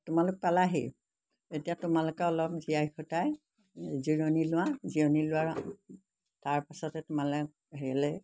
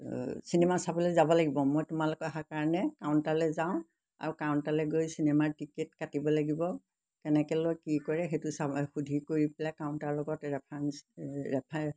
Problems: background sounds at intervals